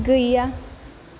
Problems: low volume